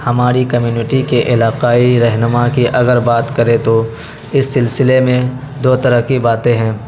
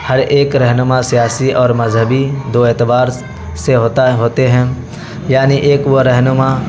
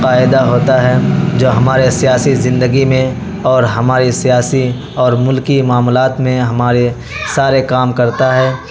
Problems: constant background noise